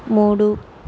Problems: none marked